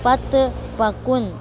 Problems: constant background noise, background conversations at intervals